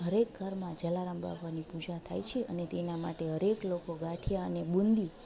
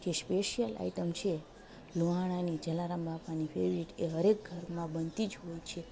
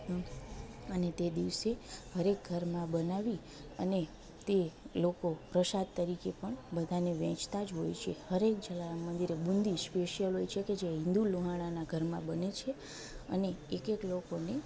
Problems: none marked